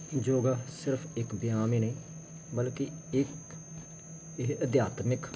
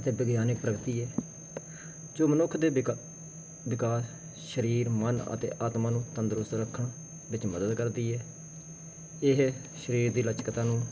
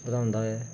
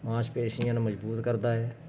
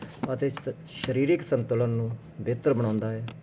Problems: constant background noise